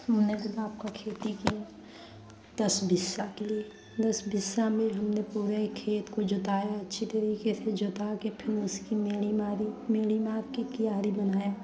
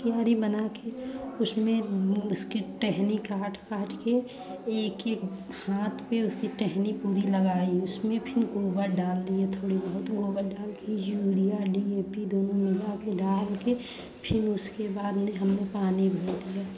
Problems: constant background noise, continuous background conversations